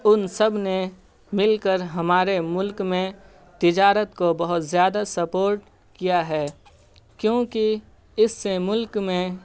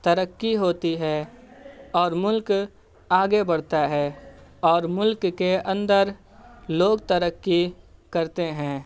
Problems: none marked